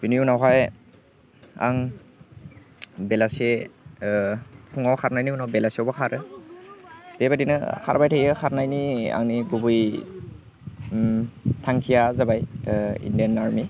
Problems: constant background noise